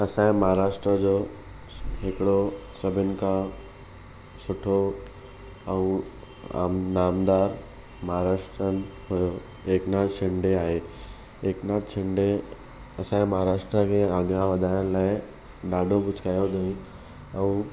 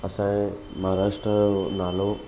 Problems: none marked